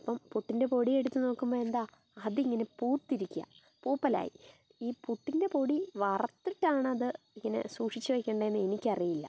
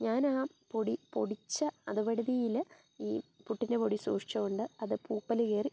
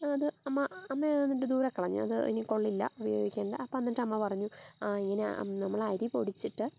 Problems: background sounds at intervals